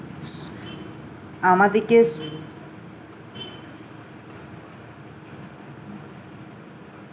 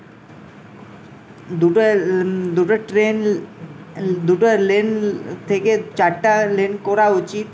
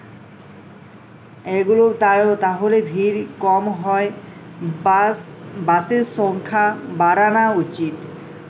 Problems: constant background noise